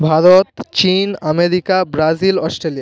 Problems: continuous background conversations